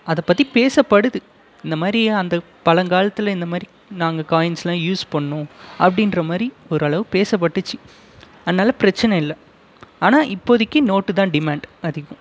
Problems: constant background noise